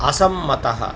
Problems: constant background noise